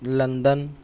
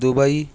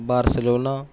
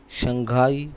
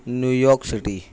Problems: none marked